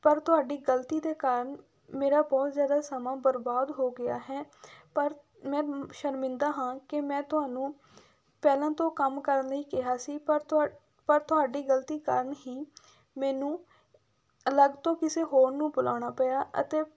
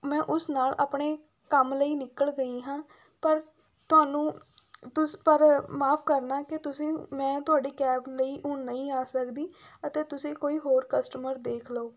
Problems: background sounds at intervals